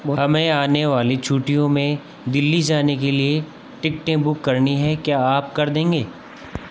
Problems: none marked